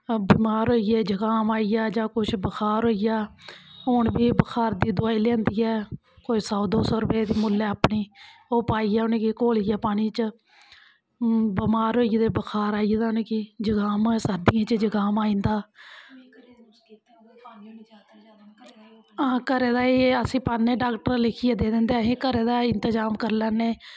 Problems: none marked